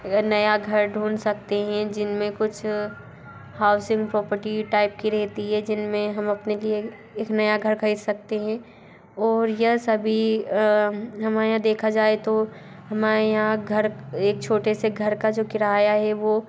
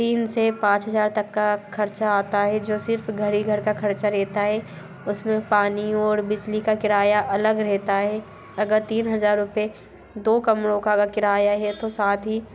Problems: constant background noise, background conversations at intervals